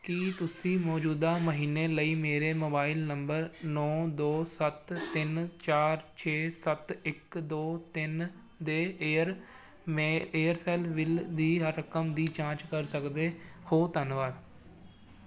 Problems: background sounds at intervals